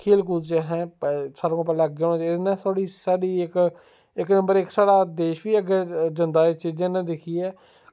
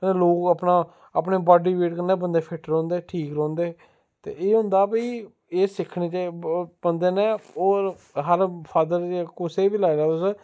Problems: none marked